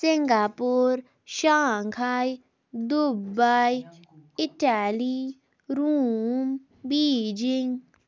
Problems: background sounds at intervals